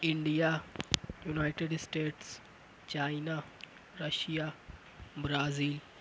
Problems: none marked